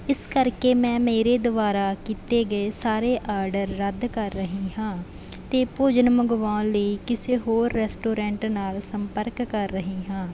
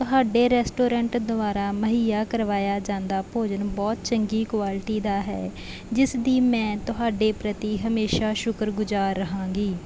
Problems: background sounds at intervals